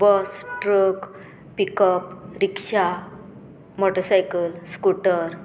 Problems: constant background noise